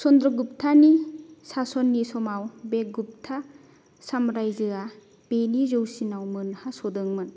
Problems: none marked